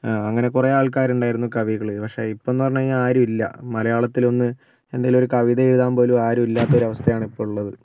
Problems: background sounds at intervals